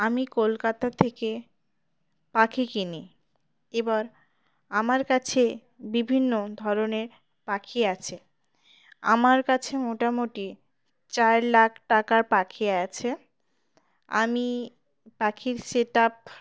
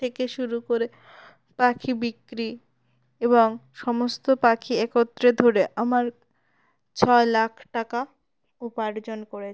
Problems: none marked